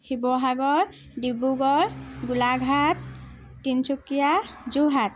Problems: none marked